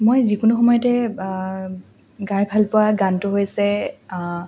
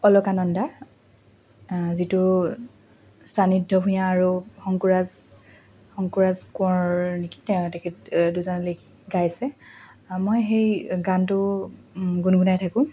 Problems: constant background noise, background conversations at intervals